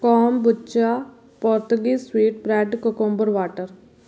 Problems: background sounds at intervals